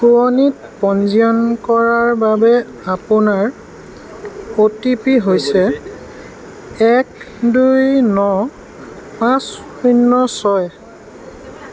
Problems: constant background noise